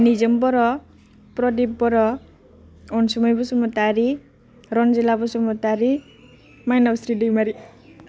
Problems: none marked